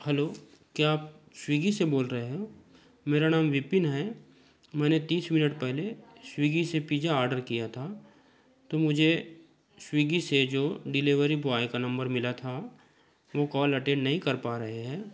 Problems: background sounds at intervals, continuous background conversations